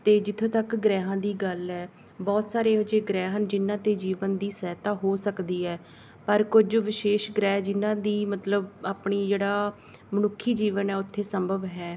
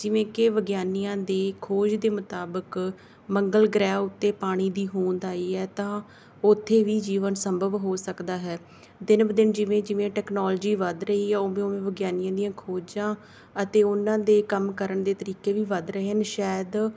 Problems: background sounds at intervals